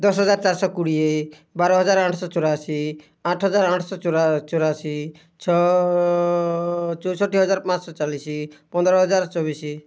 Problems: background sounds at intervals